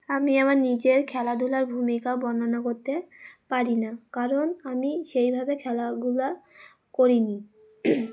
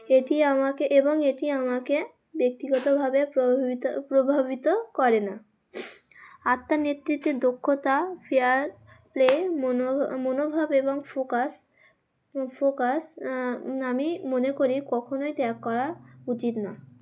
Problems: background sounds at intervals